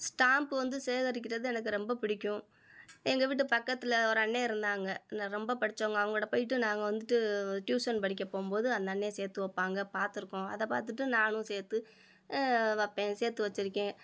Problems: none marked